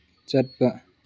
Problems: low volume